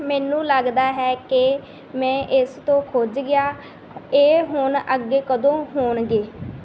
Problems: none marked